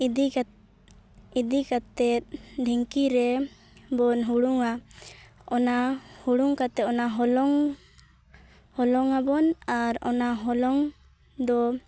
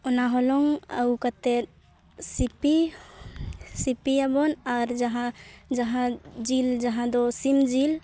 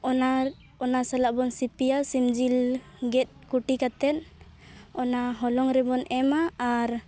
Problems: none marked